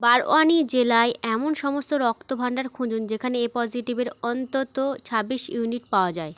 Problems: constant background noise